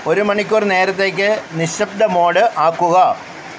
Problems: constant background noise